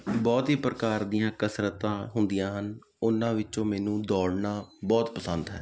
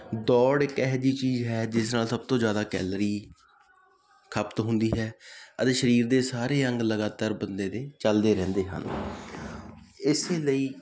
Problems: constant background noise